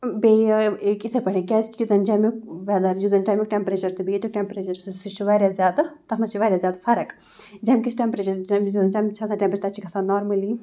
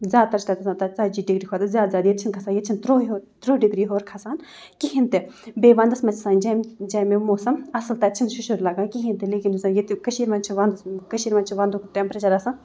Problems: background sounds at intervals